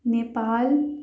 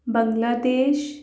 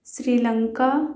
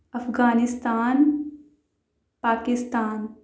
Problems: background sounds at intervals